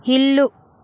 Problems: none marked